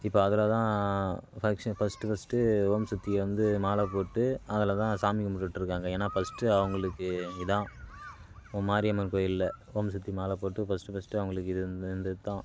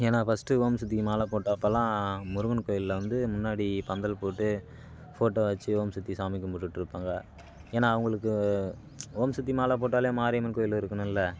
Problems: constant background noise